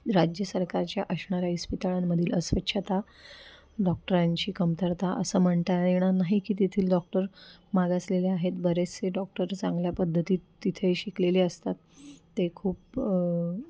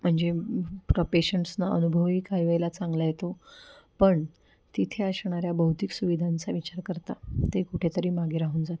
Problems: background sounds at intervals